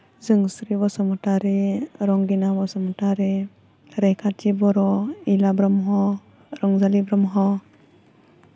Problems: none marked